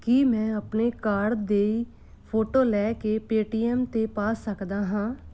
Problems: background sounds at intervals